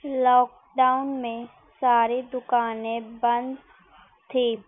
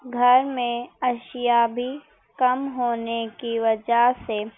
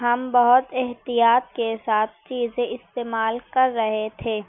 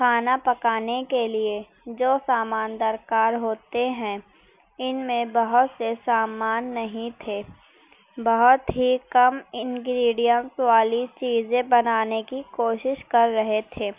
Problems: none marked